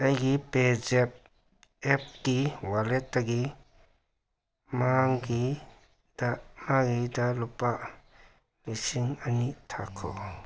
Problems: background sounds at intervals